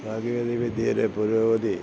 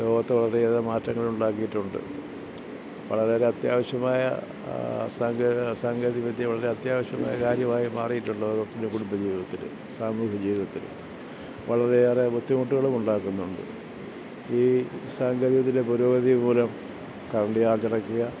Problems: low volume